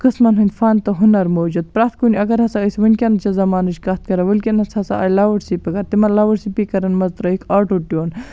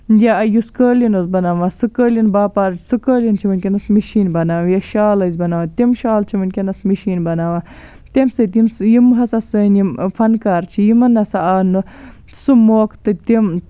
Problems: background sounds at intervals